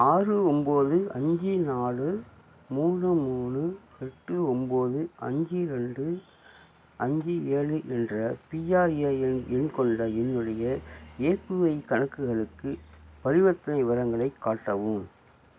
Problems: low volume